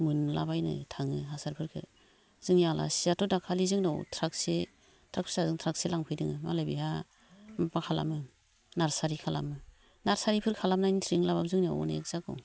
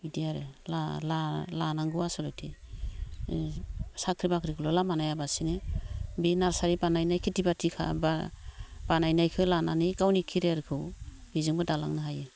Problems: low volume